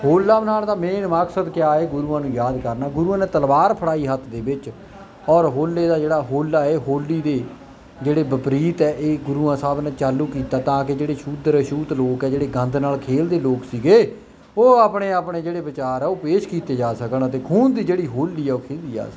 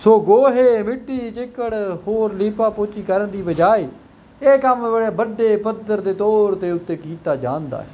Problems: none marked